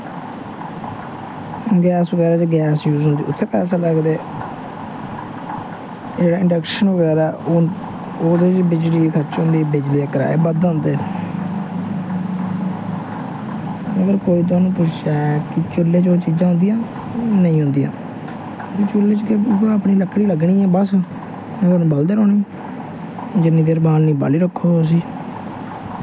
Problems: constant background noise